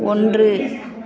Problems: continuous background conversations